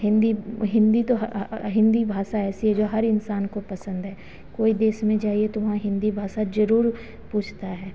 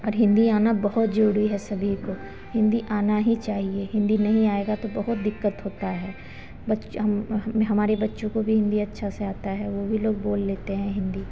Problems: none marked